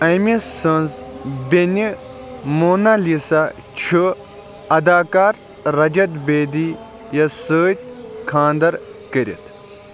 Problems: constant background noise, continuous background conversations